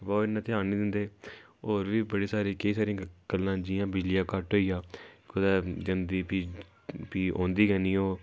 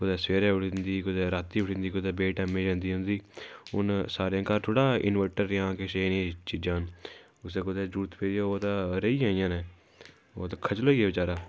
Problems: background sounds at intervals